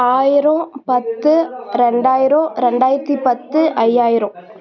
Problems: continuous background conversations